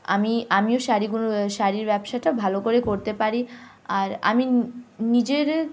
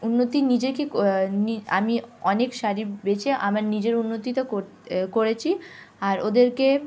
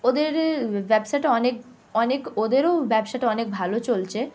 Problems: none marked